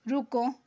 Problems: background sounds at intervals